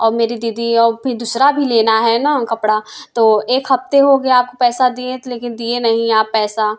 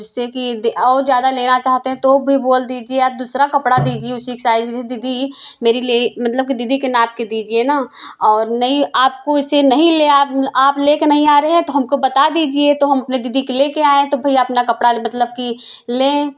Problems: background sounds at intervals, background conversations at intervals